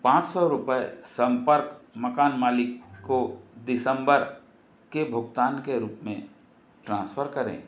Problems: constant background noise